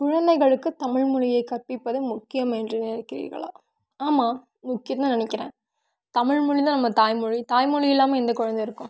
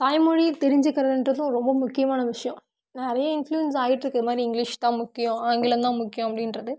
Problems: none marked